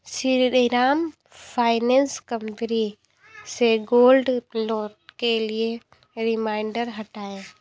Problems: constant background noise